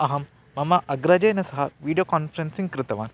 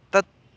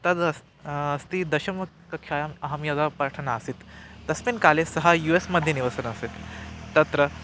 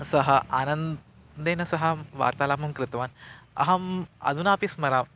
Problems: constant background noise